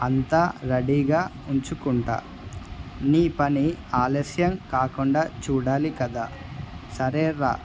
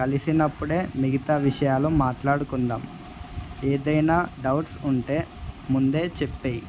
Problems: none marked